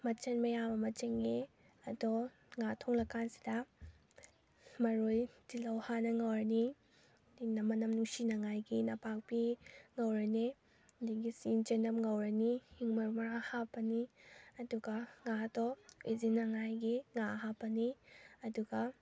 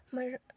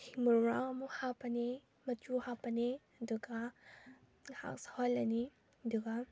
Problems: none marked